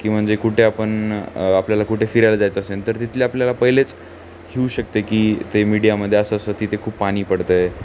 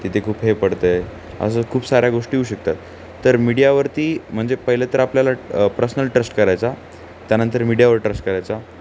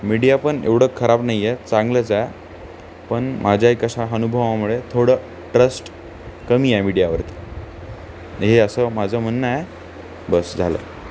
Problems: none marked